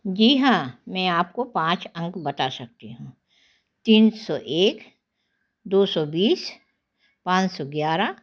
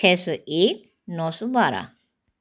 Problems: constant background noise